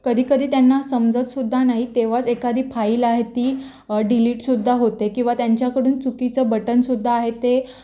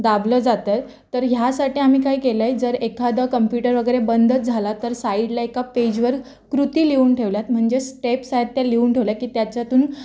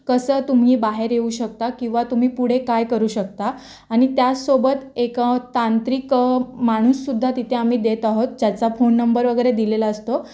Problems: constant background noise